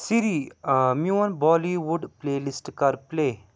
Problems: background sounds at intervals